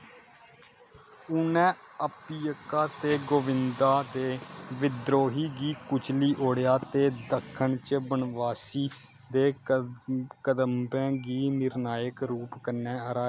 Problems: none marked